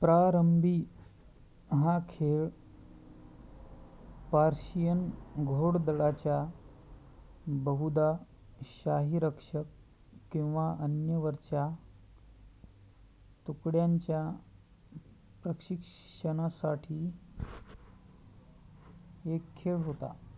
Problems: constant background noise